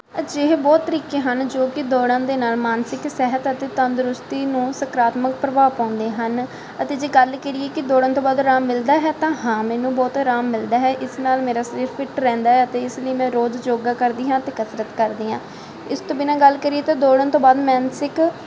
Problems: constant background noise